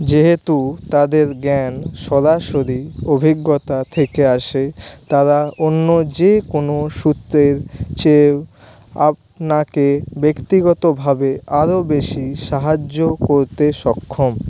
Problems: none marked